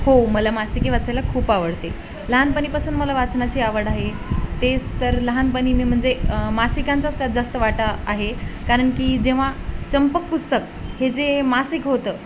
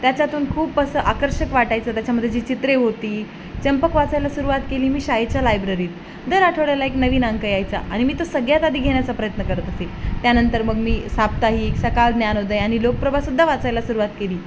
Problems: constant background noise, continuous background conversations